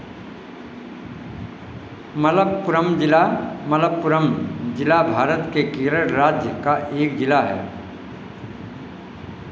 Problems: constant background noise